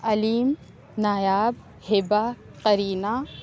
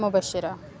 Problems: constant background noise, low volume